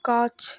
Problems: none marked